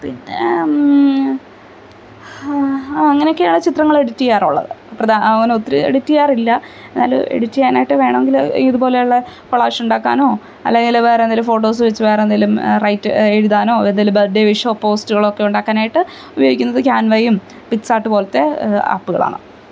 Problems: none marked